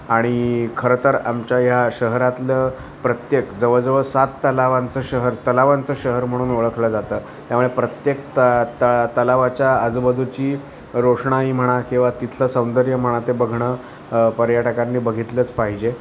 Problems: constant background noise, continuous background conversations